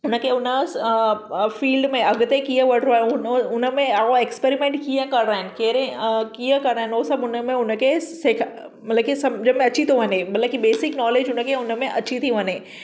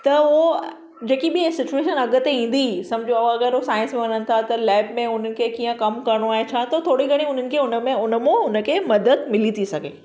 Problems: background sounds at intervals, echo